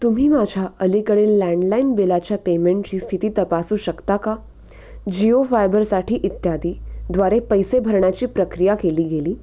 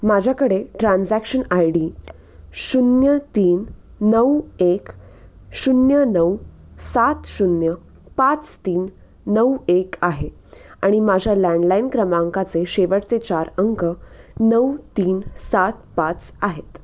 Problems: constant background noise